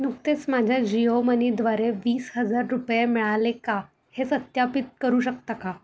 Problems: constant background noise